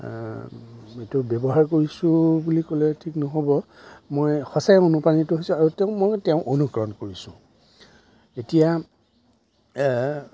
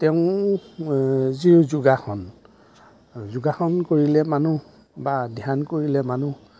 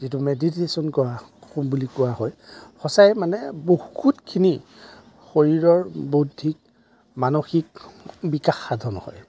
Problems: none marked